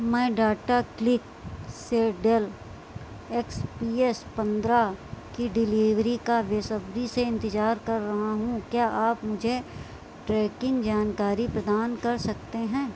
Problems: constant background noise